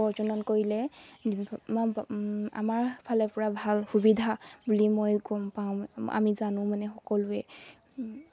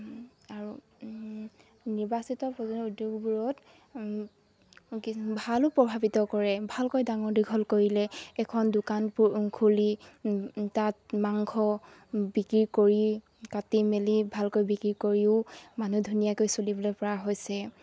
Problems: none marked